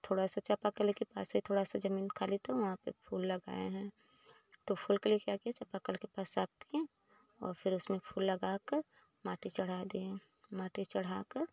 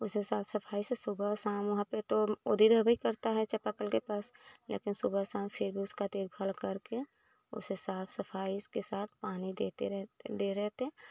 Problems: none marked